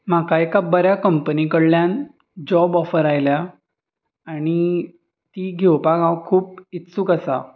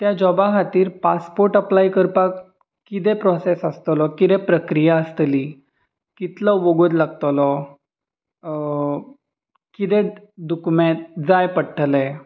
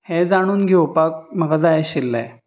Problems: constant background noise, background conversations at intervals